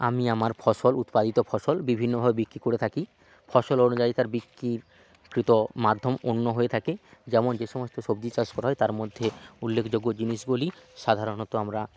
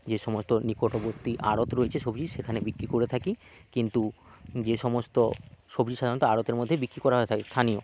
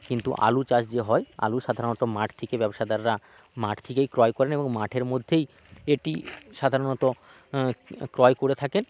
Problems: none marked